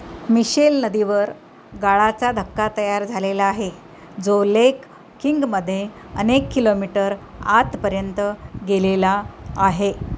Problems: constant background noise